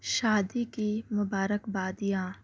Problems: constant background noise